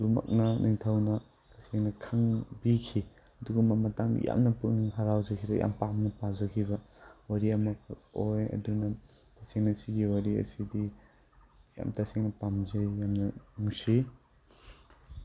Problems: background sounds at intervals